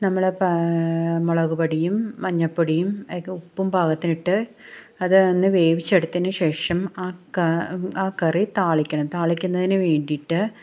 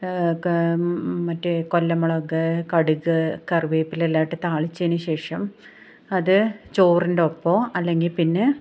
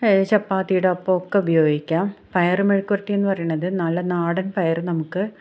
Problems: none marked